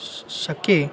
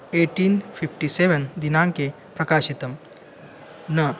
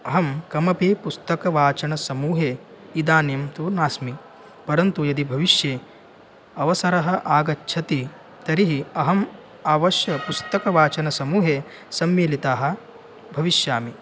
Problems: constant background noise